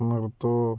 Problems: low volume